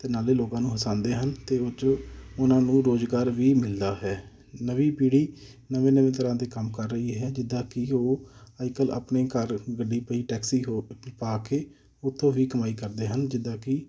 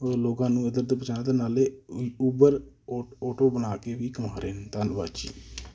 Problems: none marked